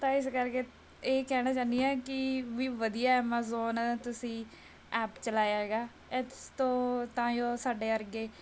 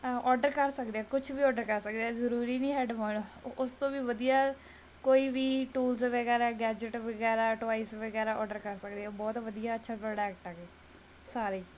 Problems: none marked